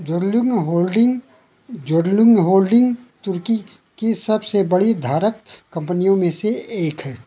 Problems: none marked